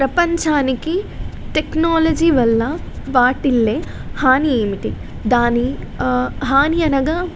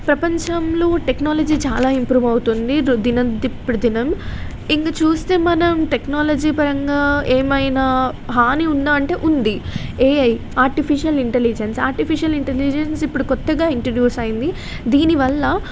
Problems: constant background noise